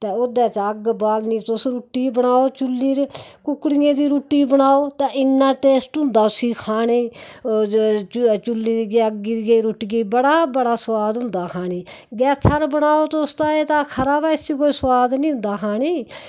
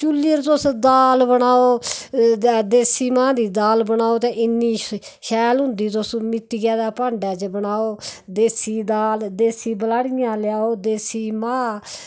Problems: background sounds at intervals